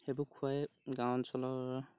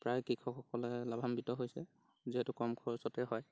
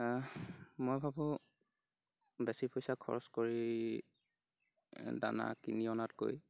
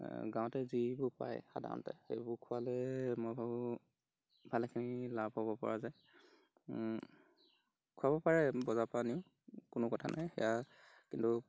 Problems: background sounds at intervals